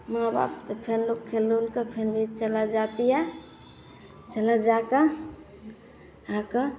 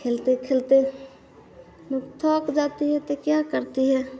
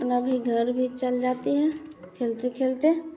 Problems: none marked